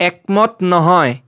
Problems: constant background noise